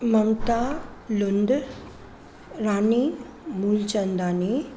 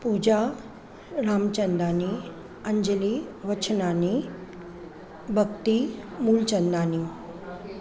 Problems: constant background noise, background conversations at intervals